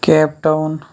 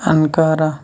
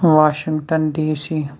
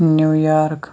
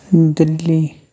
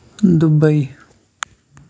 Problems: background sounds at intervals